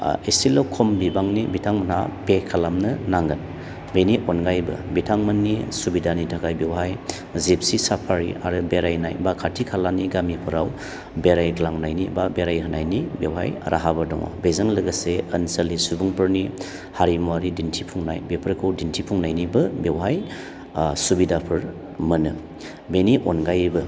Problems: low volume